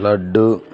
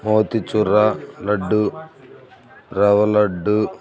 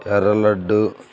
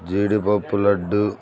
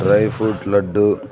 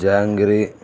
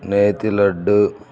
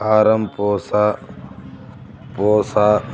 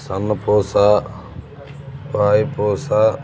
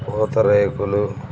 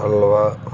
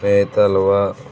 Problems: none marked